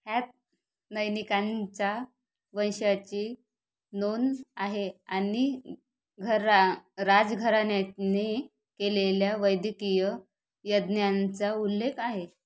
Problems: none marked